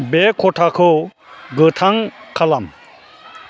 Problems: constant background noise